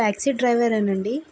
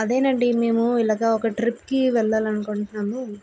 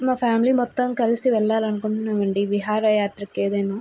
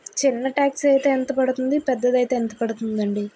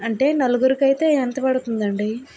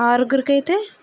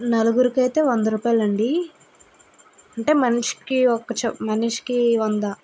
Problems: constant background noise